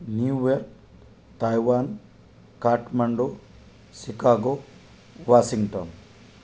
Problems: none marked